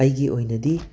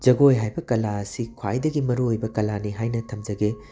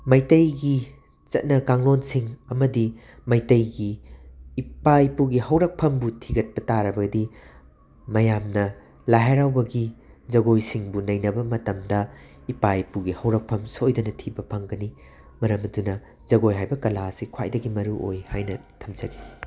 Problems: constant background noise